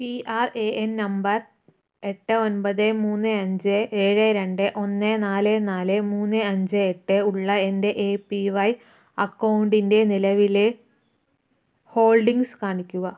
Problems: none marked